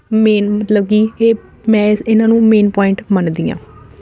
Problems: none marked